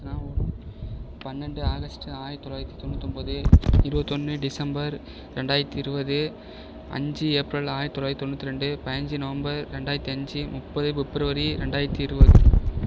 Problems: background sounds at intervals, low volume